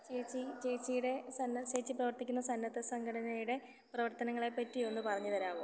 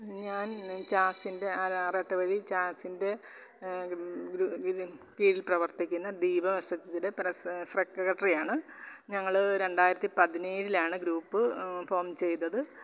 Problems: constant background noise, low volume